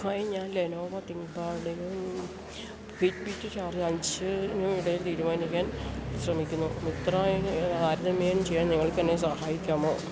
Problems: none marked